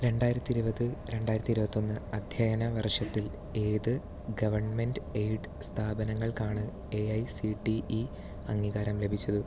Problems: none marked